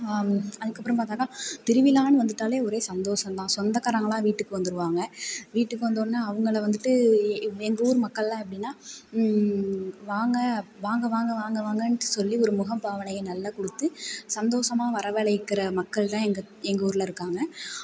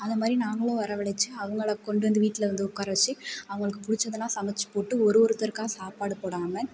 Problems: background sounds at intervals